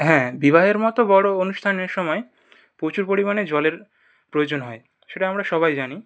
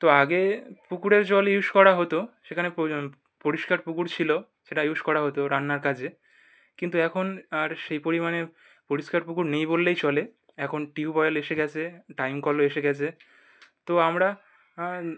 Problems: none marked